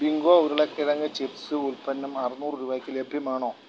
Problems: constant background noise